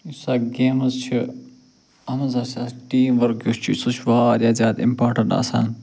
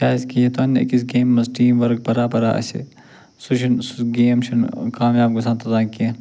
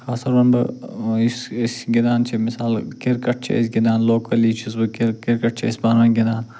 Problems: none marked